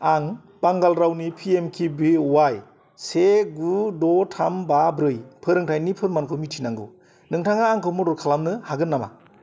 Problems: constant background noise